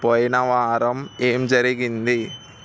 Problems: constant background noise